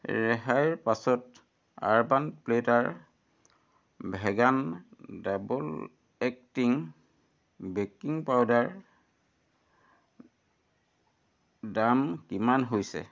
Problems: none marked